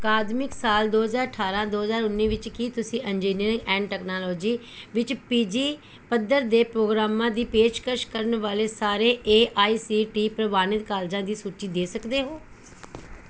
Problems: background sounds at intervals